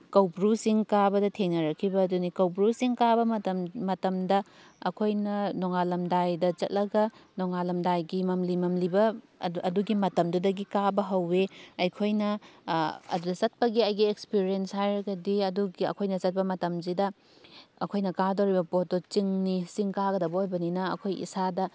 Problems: none marked